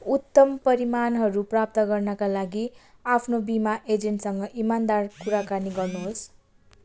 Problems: constant background noise